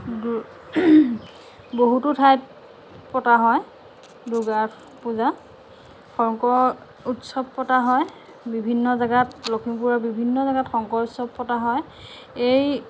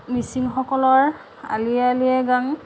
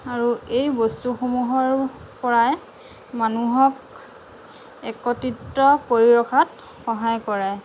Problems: none marked